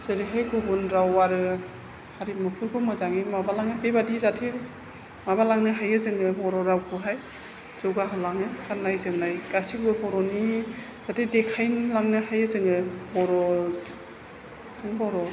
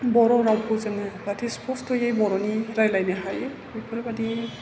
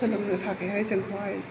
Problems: constant background noise